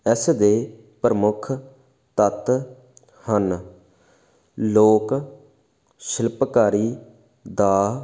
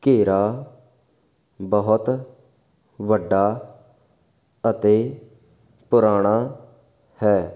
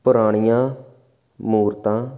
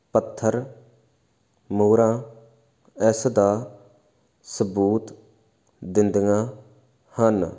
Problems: background sounds at intervals